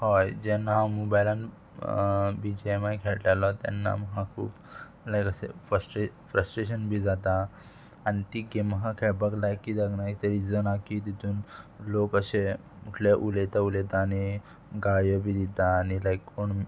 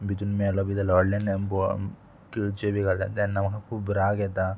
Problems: background conversations at intervals